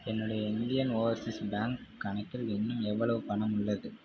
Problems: low volume